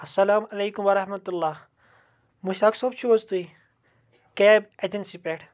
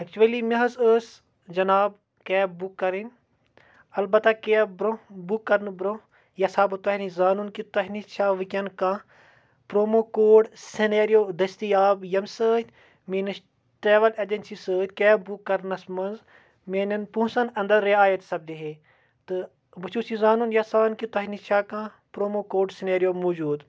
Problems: none marked